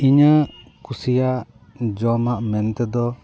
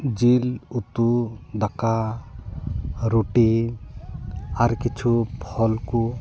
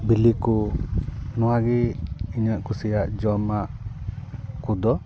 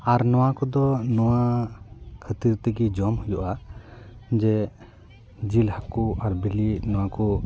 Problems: continuous background conversations